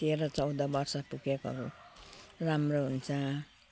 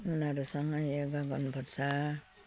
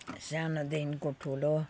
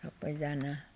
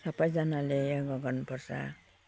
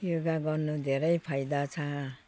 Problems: constant background noise